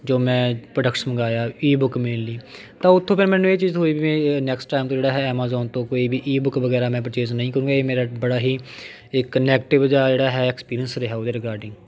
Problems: continuous background conversations